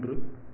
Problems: none marked